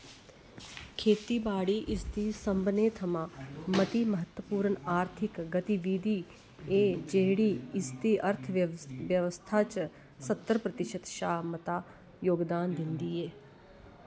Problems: constant background noise